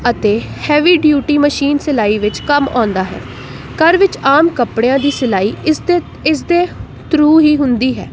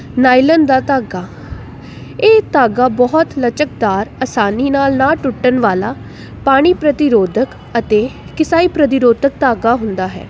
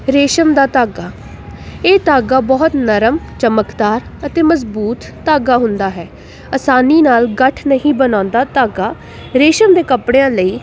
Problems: constant background noise